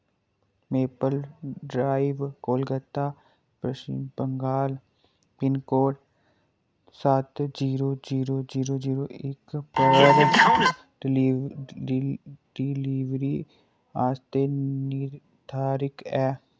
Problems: background sounds at intervals, low volume